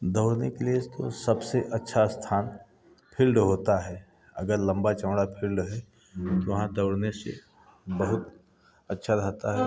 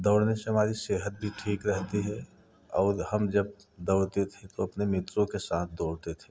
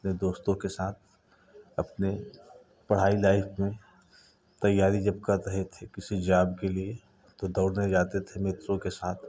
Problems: none marked